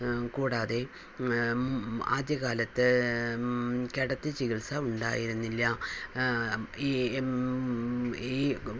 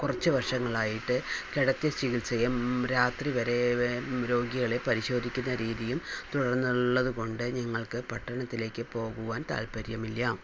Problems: constant background noise, low volume